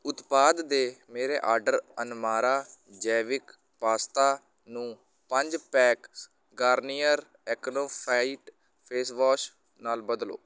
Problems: none marked